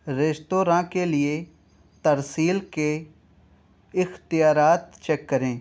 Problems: background sounds at intervals